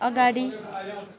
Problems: none marked